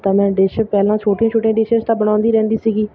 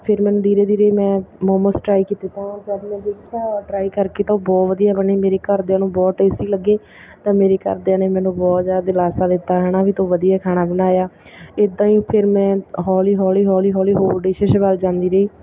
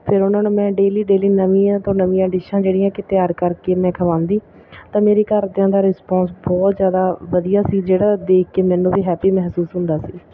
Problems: background sounds at intervals